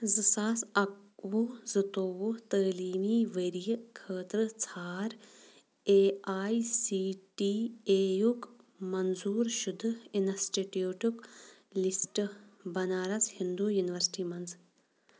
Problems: none marked